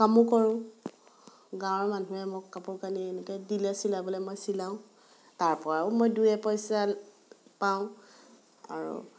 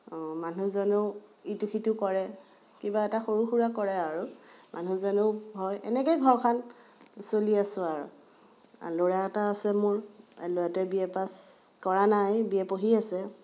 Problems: background sounds at intervals, background conversations at intervals